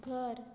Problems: none marked